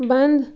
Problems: none marked